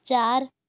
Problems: none marked